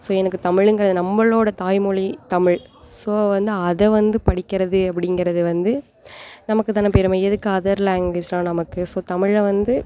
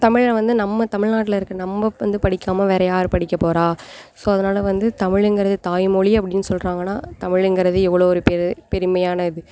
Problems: none marked